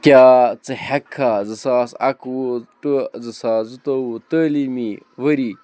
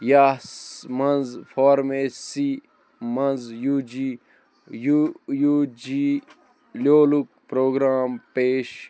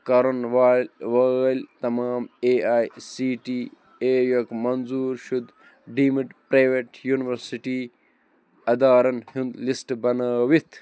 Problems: constant background noise